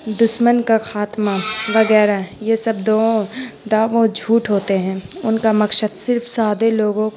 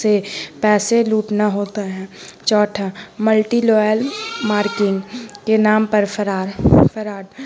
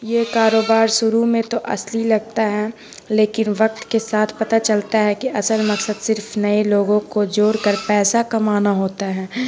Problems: constant background noise